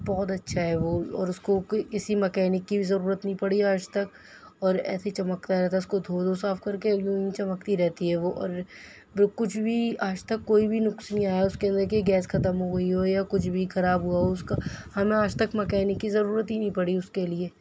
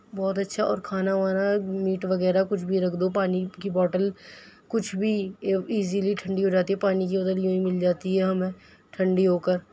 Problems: background sounds at intervals